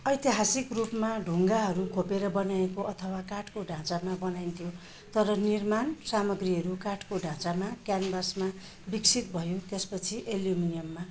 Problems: constant background noise